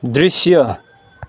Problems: none marked